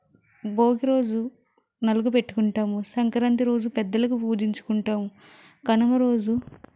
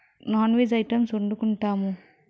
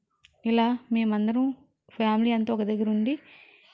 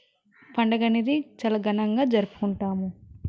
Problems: none marked